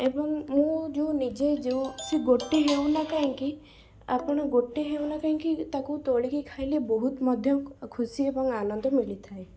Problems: background sounds at intervals, low volume